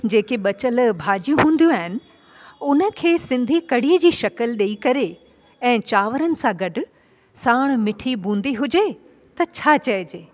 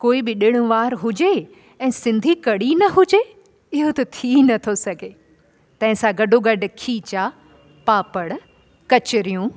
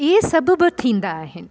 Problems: constant background noise